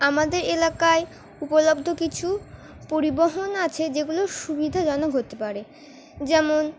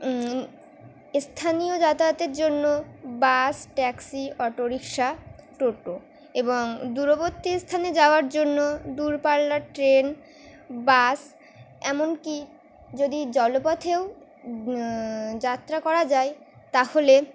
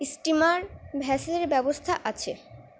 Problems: constant background noise